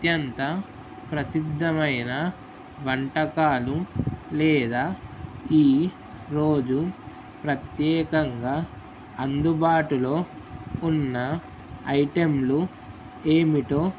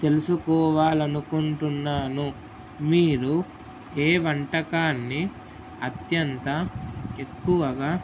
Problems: constant background noise